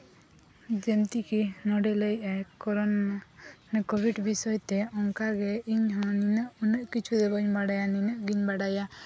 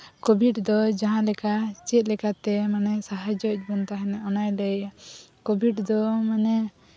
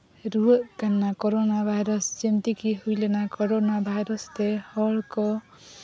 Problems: none marked